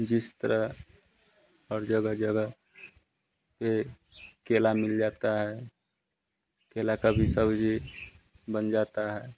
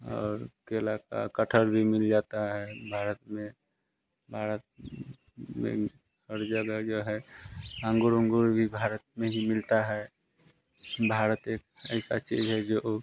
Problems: none marked